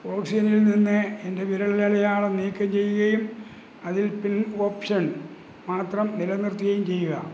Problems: none marked